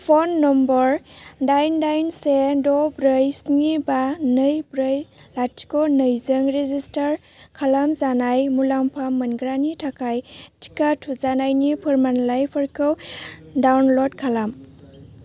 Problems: low volume